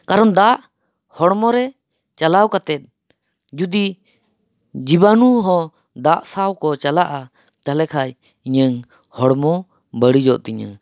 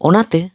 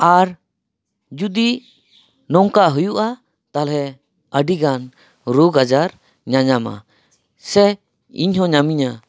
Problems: none marked